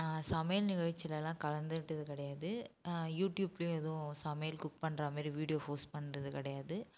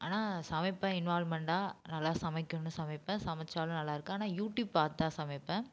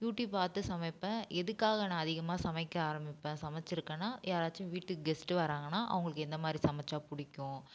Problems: background sounds at intervals, low volume